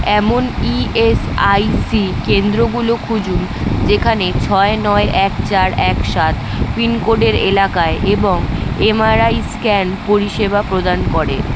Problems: constant background noise